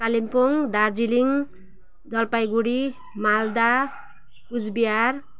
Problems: background sounds at intervals